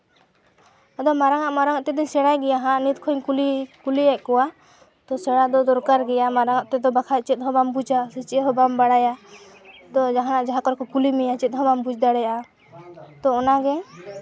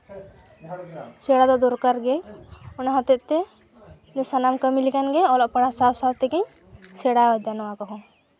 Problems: background sounds at intervals, continuous background conversations